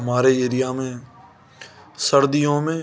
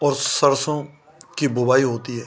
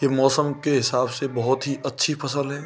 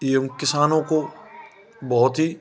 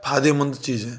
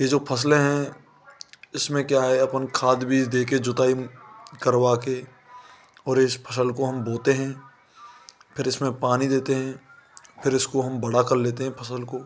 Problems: constant background noise